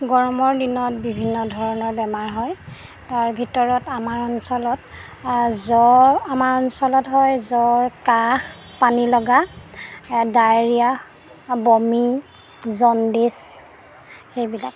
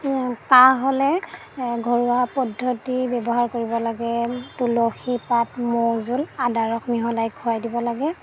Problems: background sounds at intervals